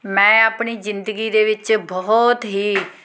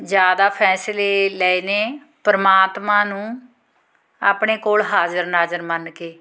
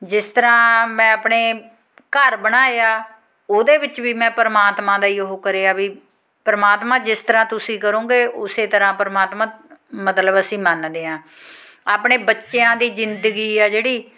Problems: constant background noise